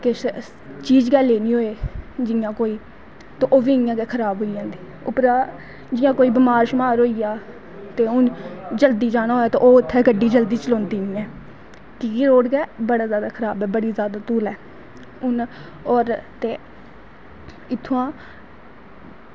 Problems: constant background noise